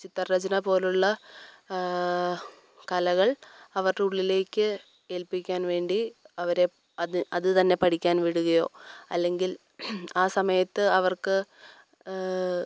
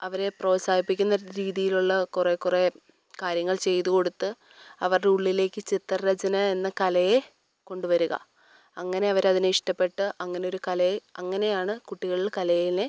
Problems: none marked